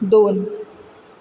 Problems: constant background noise